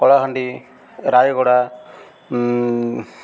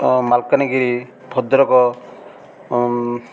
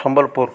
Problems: none marked